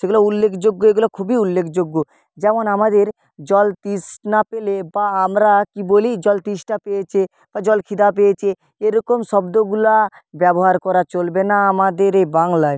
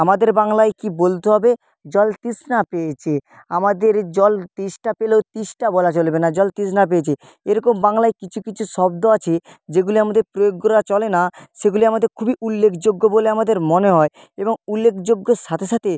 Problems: constant background noise